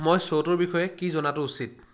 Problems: none marked